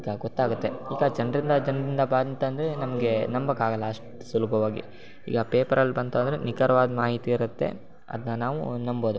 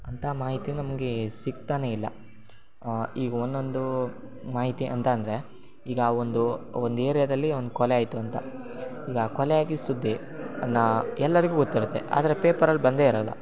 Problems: none marked